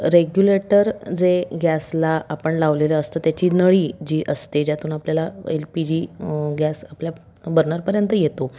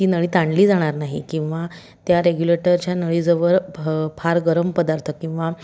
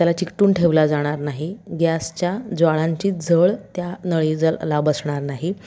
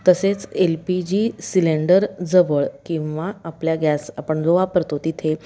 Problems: background sounds at intervals, background conversations at intervals